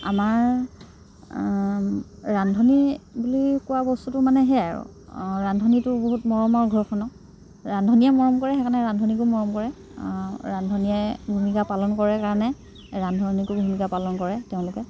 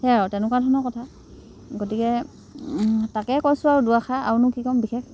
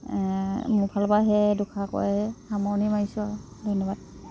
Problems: background sounds at intervals